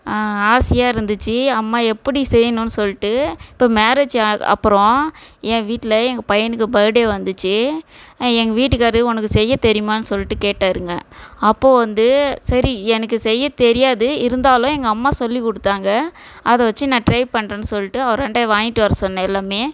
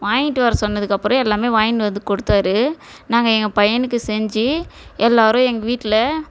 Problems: background sounds at intervals